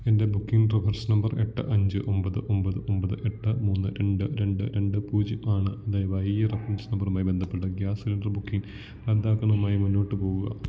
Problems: low volume